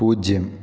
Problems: none marked